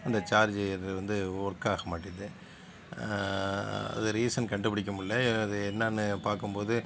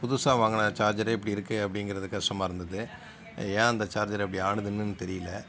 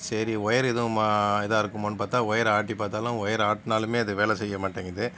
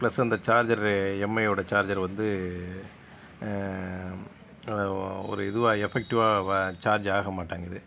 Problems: background sounds at intervals